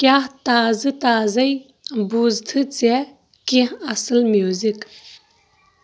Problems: background sounds at intervals, background conversations at intervals